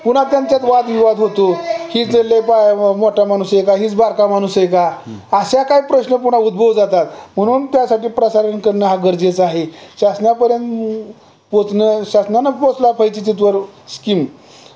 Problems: none marked